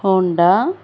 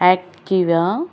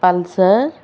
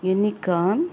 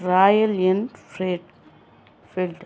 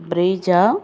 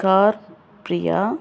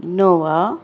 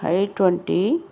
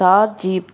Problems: background sounds at intervals